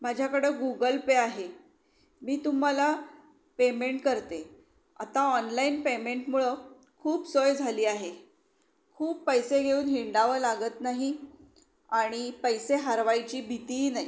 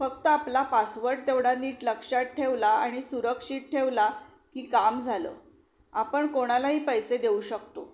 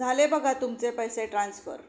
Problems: none marked